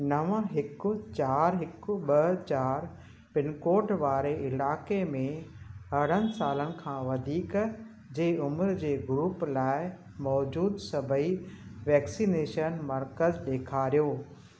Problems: constant background noise